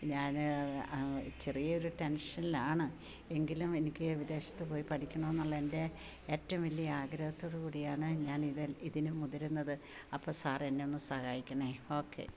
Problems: none marked